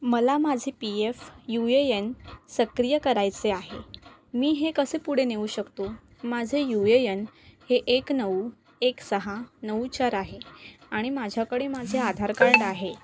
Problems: none marked